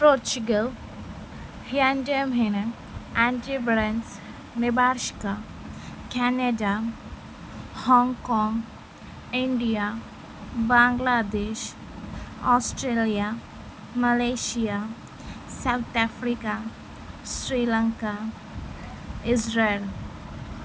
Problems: none marked